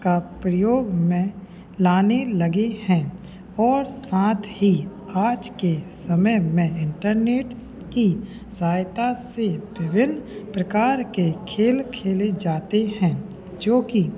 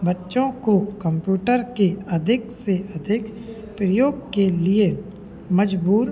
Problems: none marked